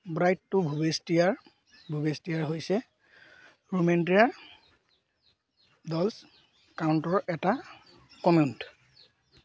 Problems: background sounds at intervals